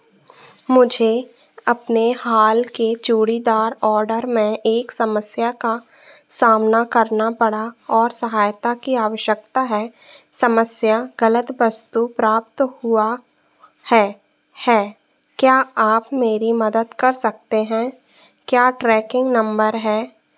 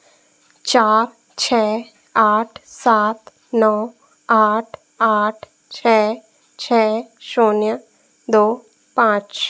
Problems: constant background noise